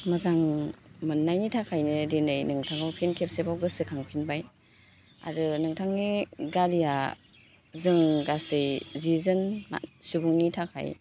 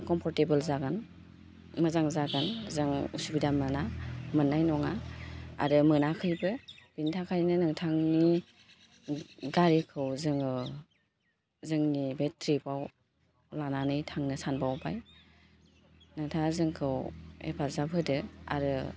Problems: constant background noise